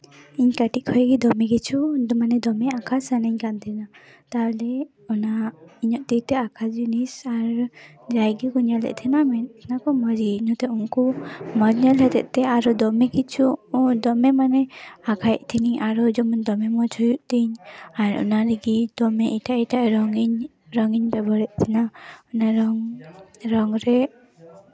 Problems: background sounds at intervals